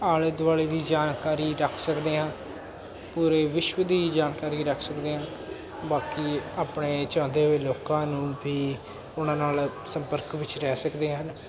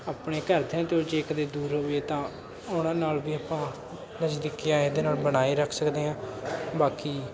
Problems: constant background noise, continuous background conversations